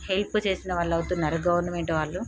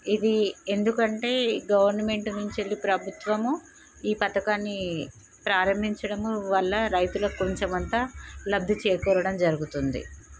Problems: none marked